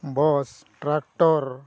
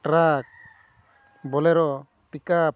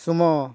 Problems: none marked